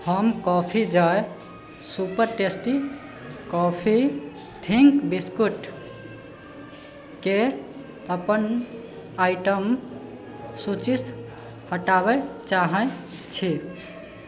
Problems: background sounds at intervals